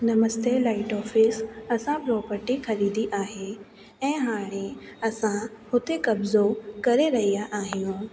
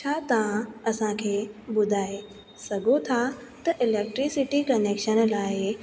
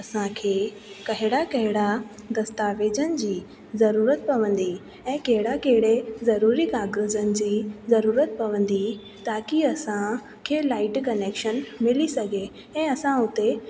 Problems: constant background noise, echo